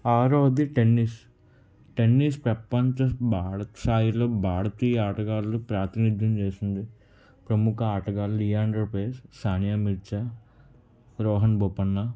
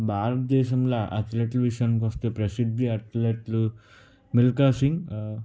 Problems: none marked